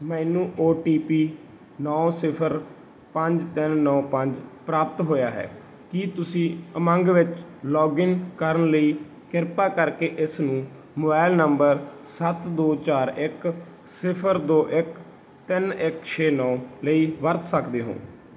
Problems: none marked